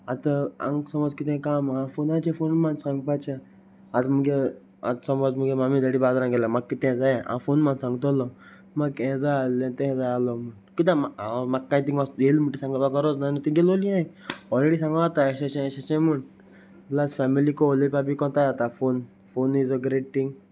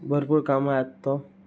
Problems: none marked